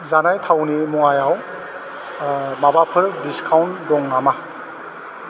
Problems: none marked